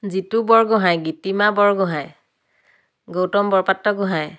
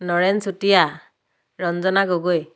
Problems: none marked